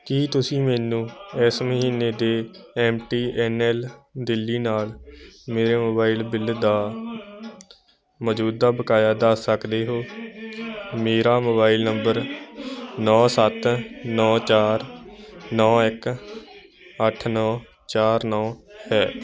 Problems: constant background noise